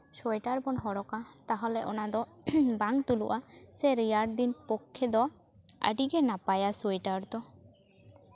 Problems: none marked